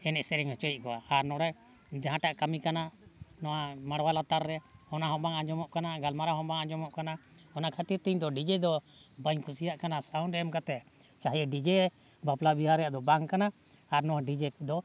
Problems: background sounds at intervals